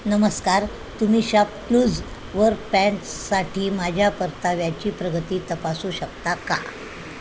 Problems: constant background noise